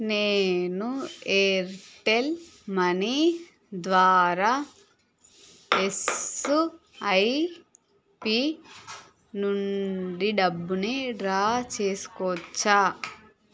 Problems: background sounds at intervals